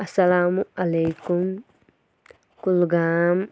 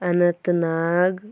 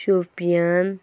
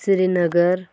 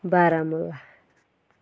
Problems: none marked